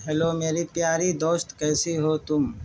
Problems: constant background noise